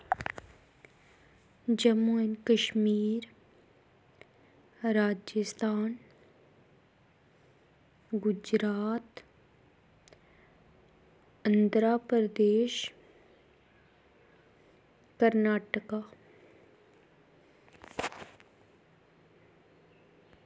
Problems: constant background noise